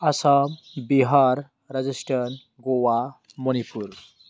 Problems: constant background noise